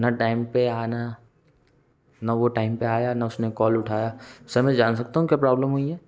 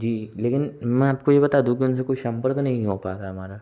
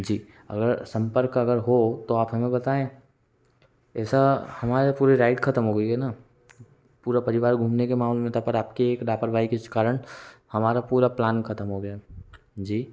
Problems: none marked